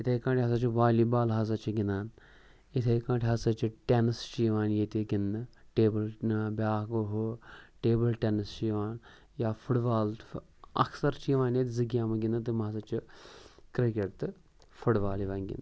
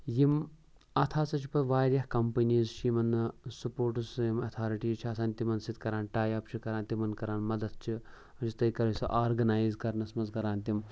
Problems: none marked